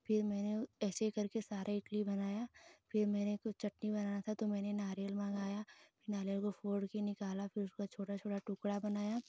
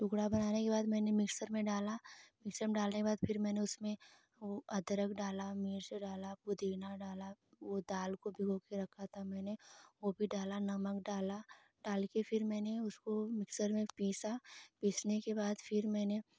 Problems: none marked